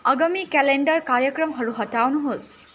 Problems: constant background noise